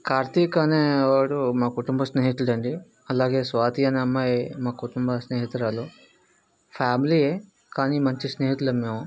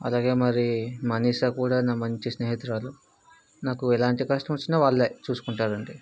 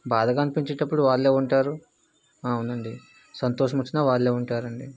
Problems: background conversations at intervals